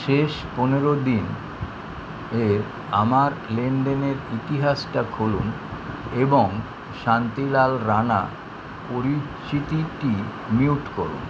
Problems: none marked